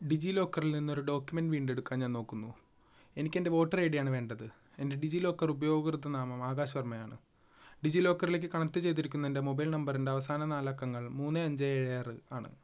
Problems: low volume